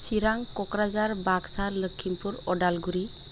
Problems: constant background noise